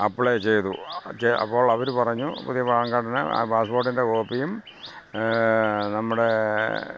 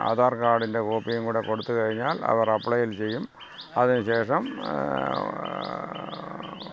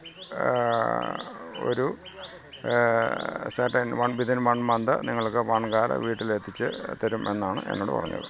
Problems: background sounds at intervals, low volume